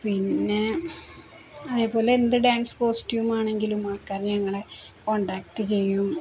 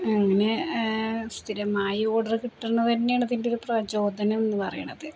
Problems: constant background noise, low volume